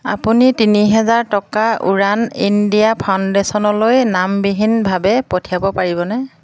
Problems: constant background noise